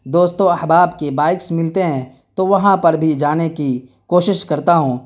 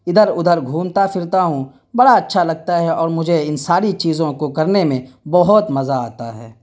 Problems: none marked